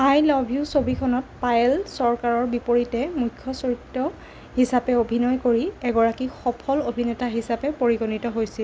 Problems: none marked